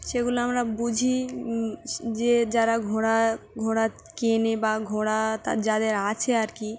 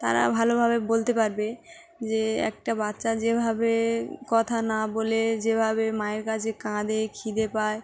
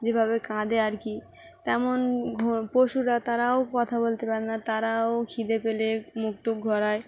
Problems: constant background noise